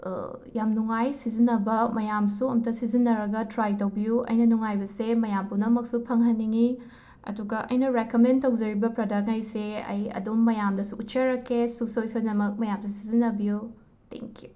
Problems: background sounds at intervals